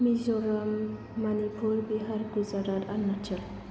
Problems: constant background noise, low volume